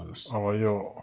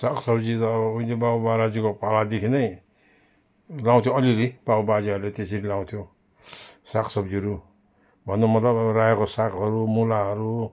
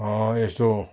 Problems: none marked